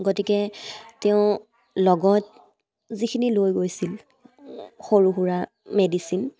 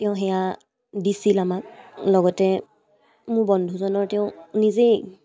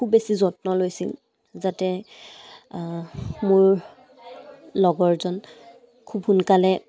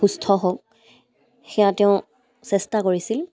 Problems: none marked